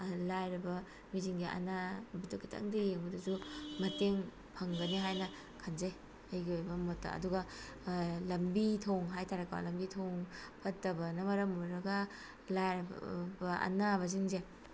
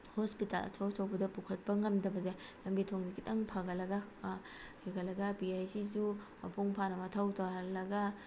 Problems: constant background noise